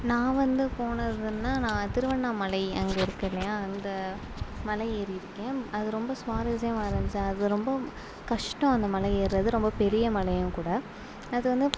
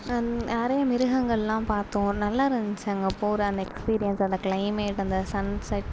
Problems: low volume